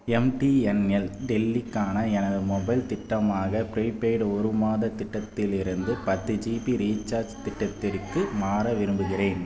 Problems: background conversations at intervals